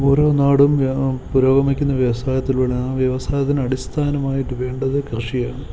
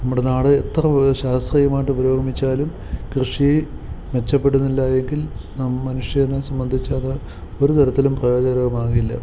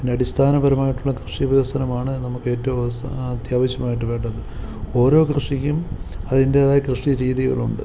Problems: none marked